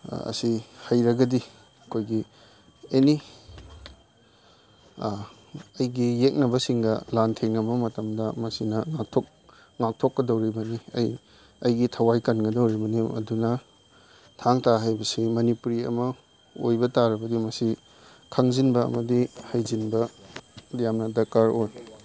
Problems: background sounds at intervals